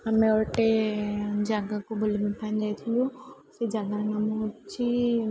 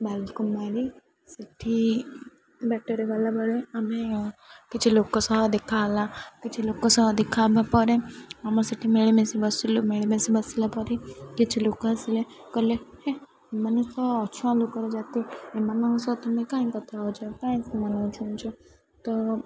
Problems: constant background noise, continuous background conversations